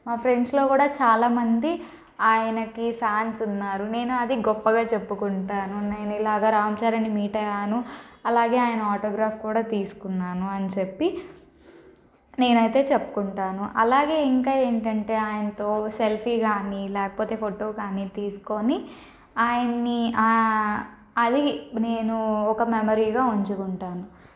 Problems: none marked